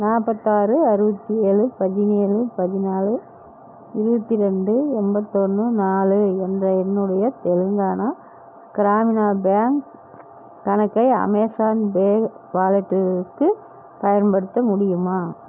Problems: constant background noise